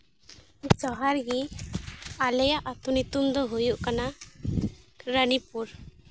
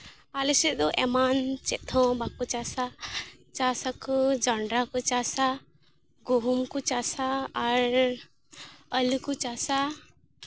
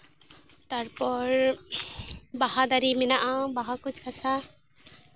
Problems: constant background noise